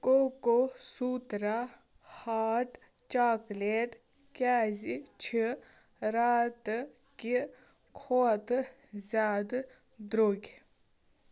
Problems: background sounds at intervals